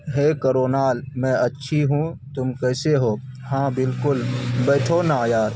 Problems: constant background noise